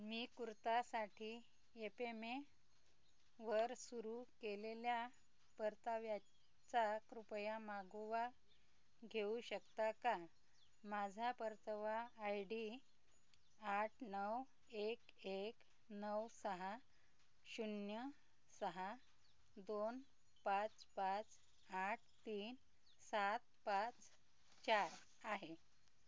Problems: background sounds at intervals